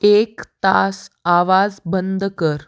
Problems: none marked